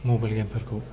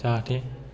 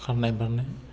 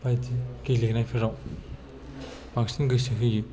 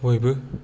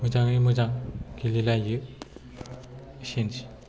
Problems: low volume